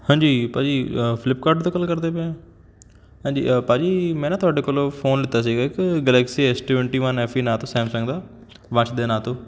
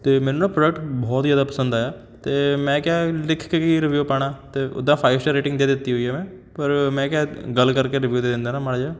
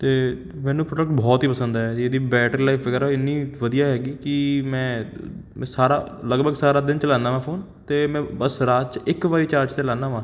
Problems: none marked